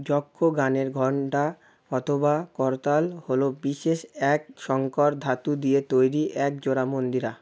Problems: none marked